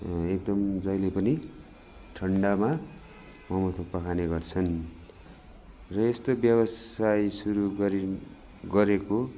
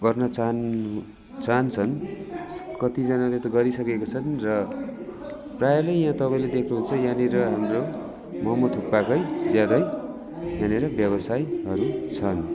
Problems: constant background noise, continuous background conversations